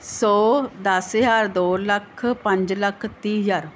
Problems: none marked